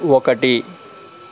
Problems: constant background noise